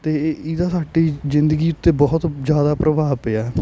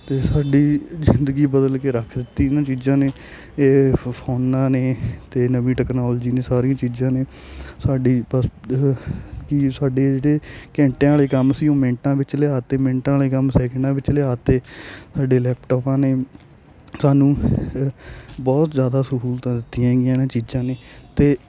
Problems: constant background noise